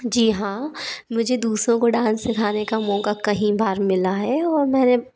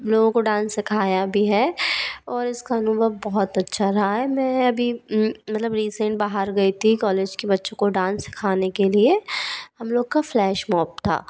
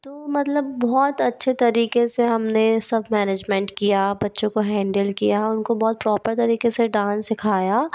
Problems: none marked